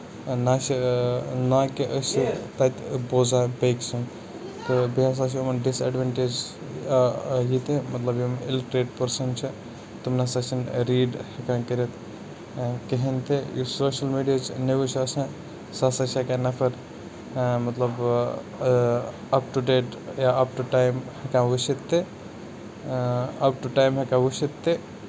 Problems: background sounds at intervals, background conversations at intervals